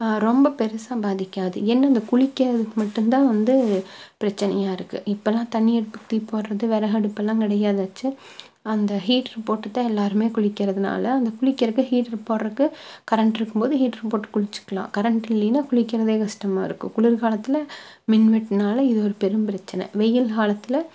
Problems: none marked